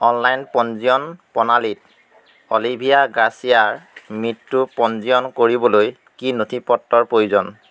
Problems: constant background noise